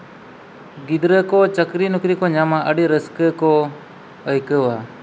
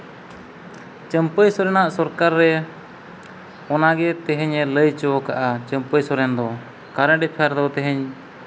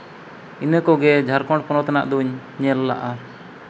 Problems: constant background noise